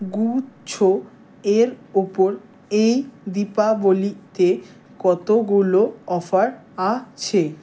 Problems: none marked